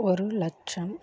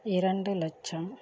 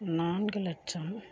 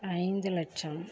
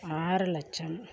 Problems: low volume